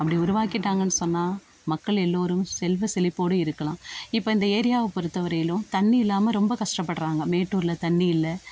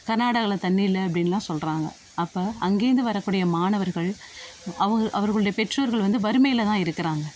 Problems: constant background noise